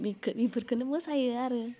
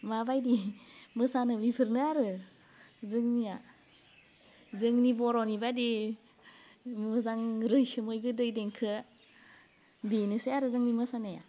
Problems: constant background noise